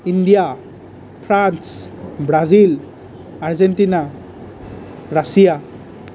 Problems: none marked